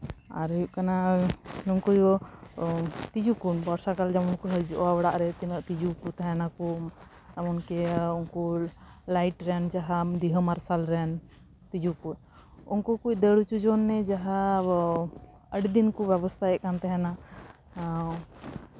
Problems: constant background noise